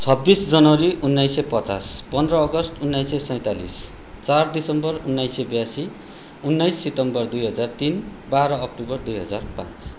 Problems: none marked